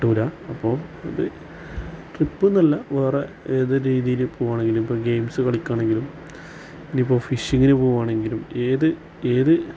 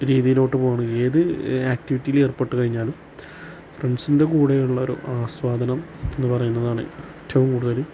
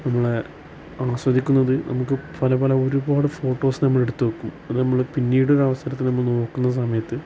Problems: none marked